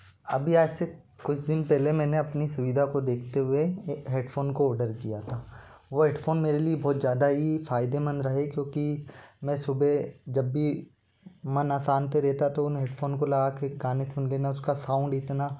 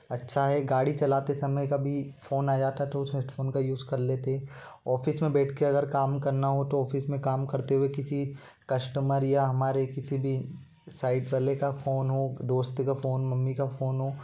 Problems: none marked